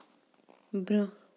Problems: background sounds at intervals